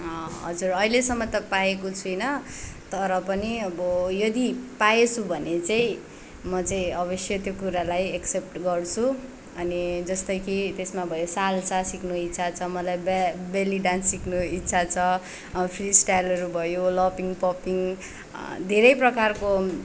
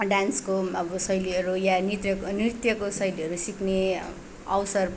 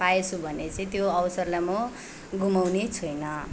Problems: background sounds at intervals